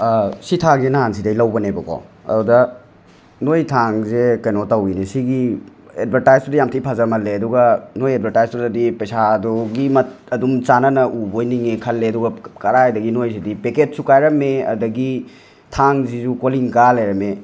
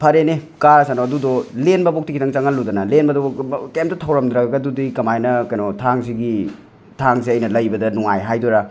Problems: constant background noise, background conversations at intervals